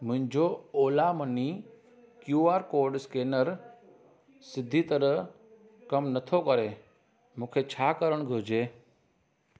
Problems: constant background noise